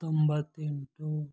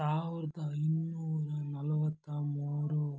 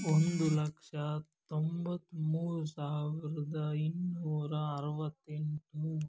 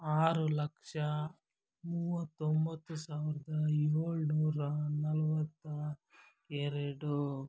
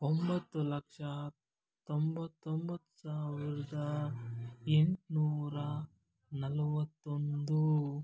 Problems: none marked